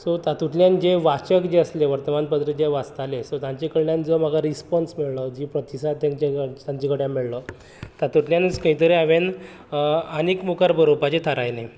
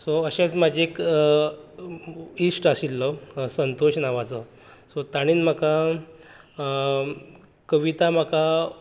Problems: none marked